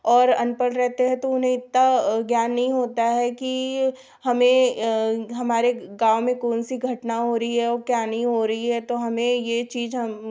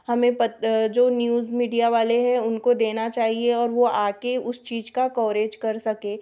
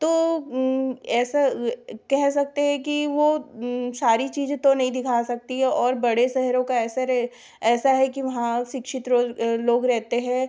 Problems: background sounds at intervals